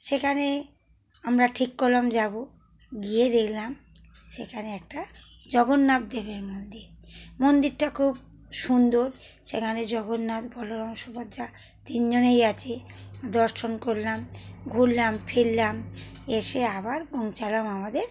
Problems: none marked